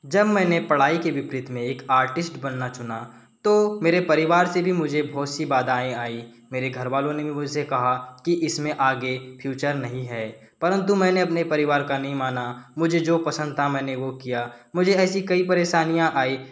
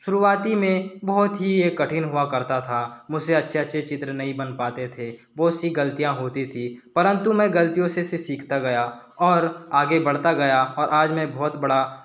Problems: background sounds at intervals